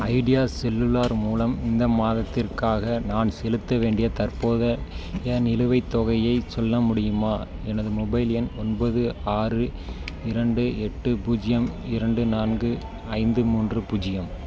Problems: background sounds at intervals